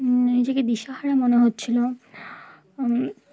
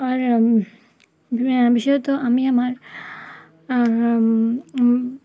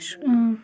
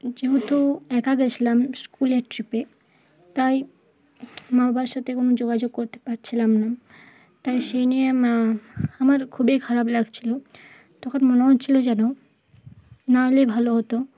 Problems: none marked